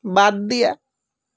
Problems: background sounds at intervals